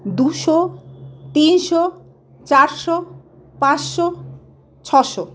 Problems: constant background noise, background conversations at intervals